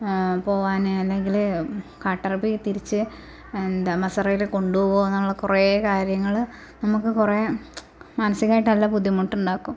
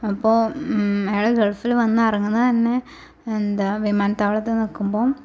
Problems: constant background noise, low volume